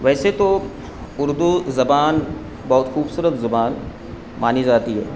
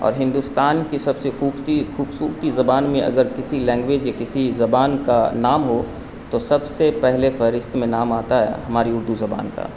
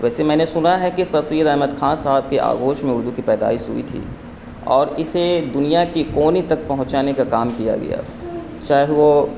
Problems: constant background noise